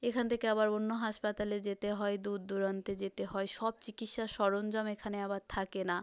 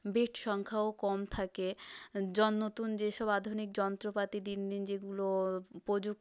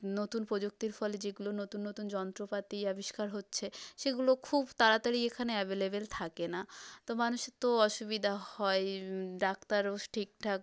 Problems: none marked